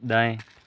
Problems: none marked